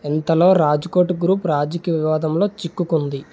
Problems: background sounds at intervals